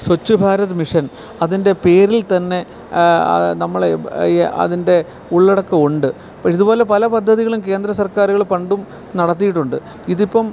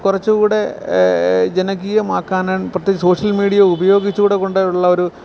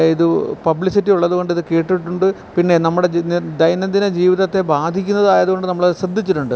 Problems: background sounds at intervals